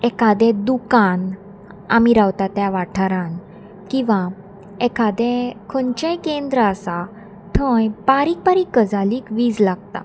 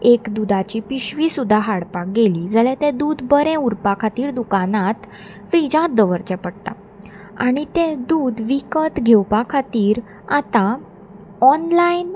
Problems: constant background noise